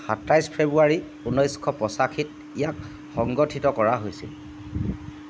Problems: none marked